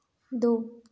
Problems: none marked